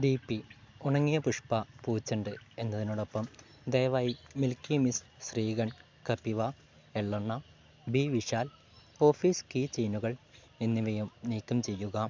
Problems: low volume